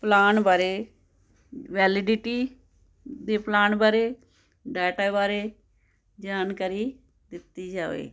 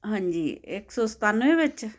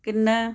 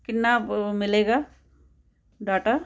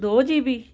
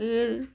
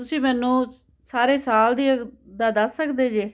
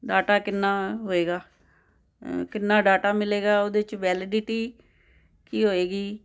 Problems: none marked